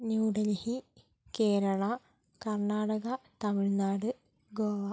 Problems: low volume